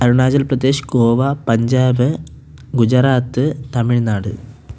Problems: none marked